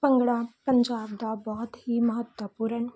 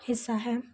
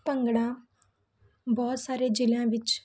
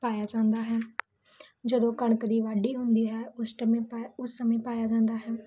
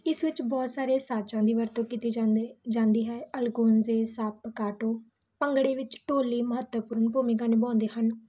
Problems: none marked